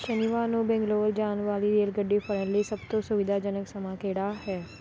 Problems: none marked